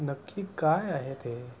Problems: constant background noise